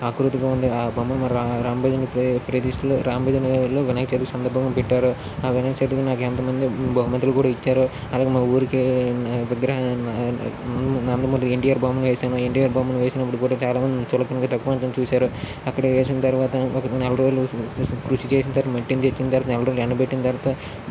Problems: constant background noise